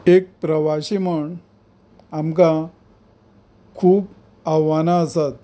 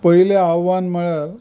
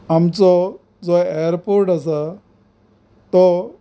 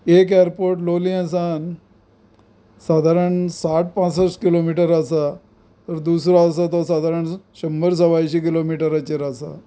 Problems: none marked